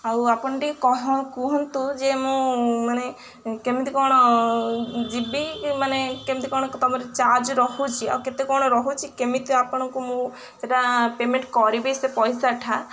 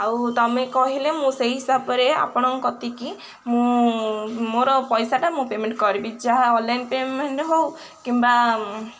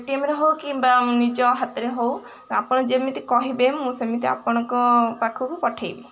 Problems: none marked